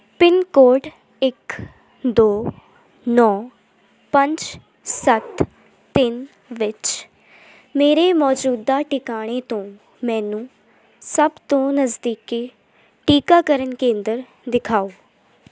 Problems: constant background noise